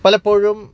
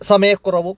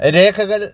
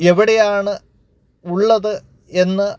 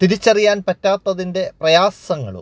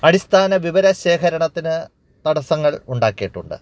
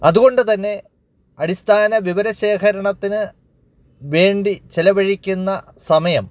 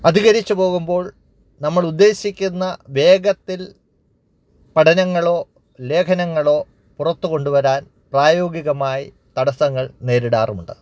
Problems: none marked